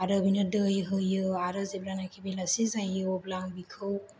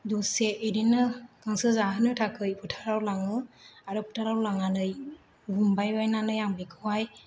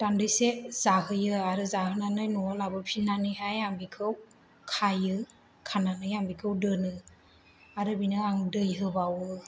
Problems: none marked